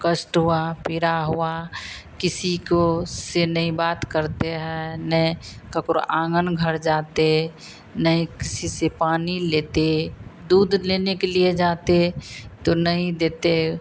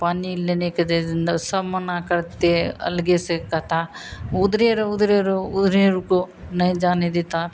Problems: constant background noise